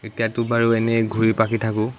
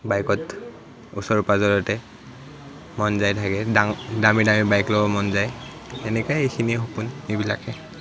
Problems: none marked